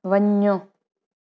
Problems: none marked